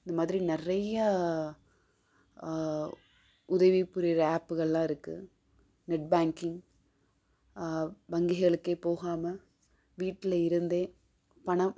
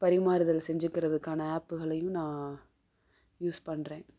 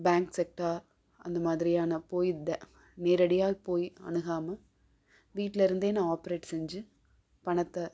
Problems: none marked